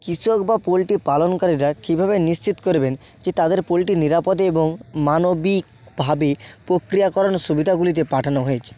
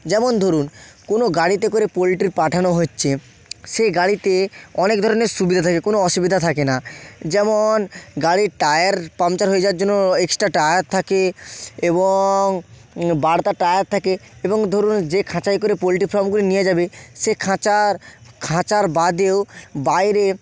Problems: background sounds at intervals